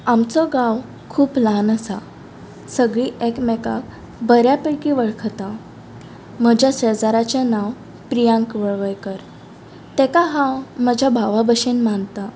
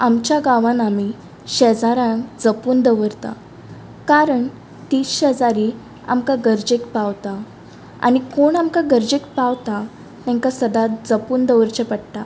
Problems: background sounds at intervals